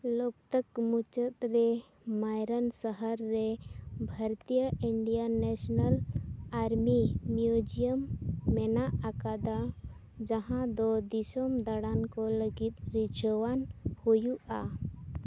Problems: background sounds at intervals